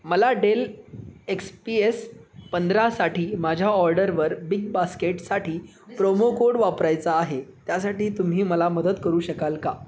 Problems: constant background noise, background conversations at intervals